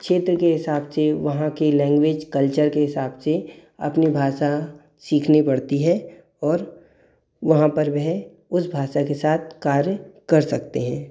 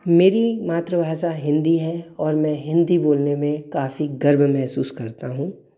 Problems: none marked